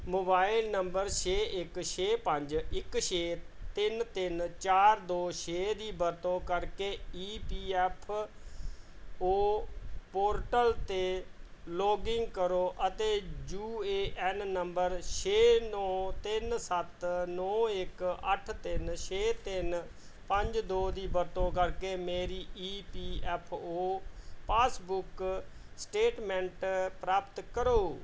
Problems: background sounds at intervals